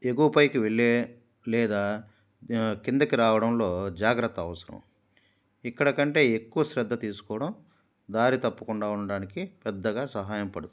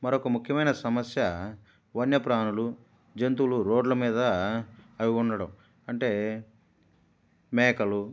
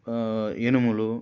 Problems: none marked